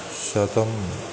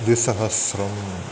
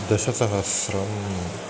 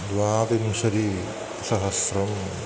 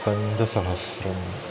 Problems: constant background noise